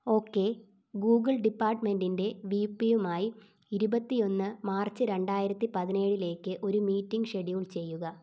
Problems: none marked